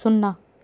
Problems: constant background noise